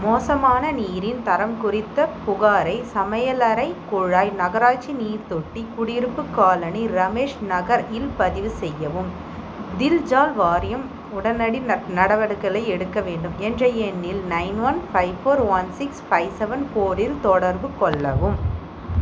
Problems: constant background noise